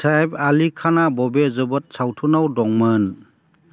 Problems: constant background noise